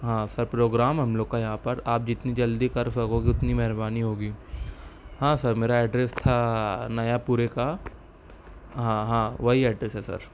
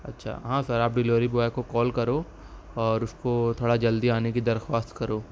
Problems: background sounds at intervals